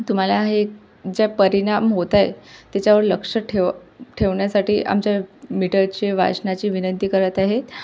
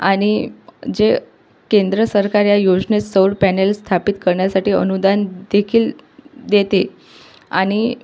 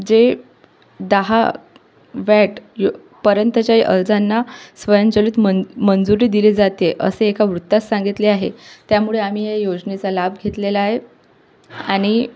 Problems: none marked